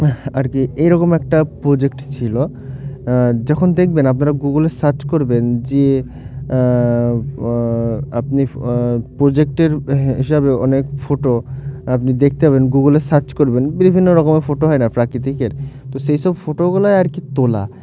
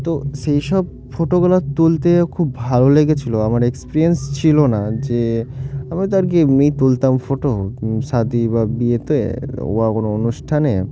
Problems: none marked